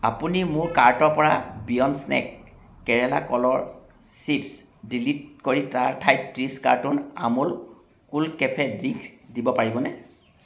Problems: background sounds at intervals